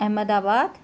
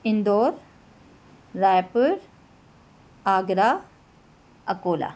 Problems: constant background noise